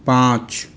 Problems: constant background noise, echo